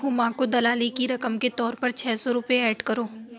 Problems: constant background noise